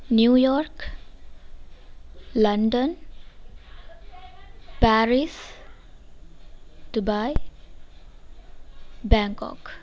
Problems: none marked